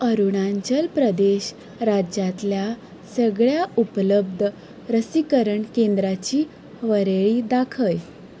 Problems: background sounds at intervals